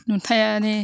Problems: constant background noise